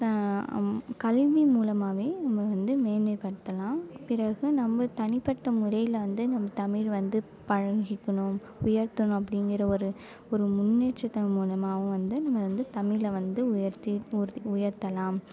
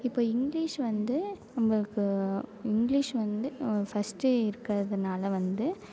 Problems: none marked